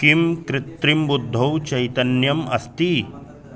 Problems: continuous background conversations